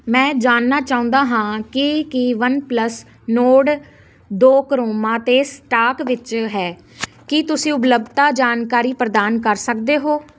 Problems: constant background noise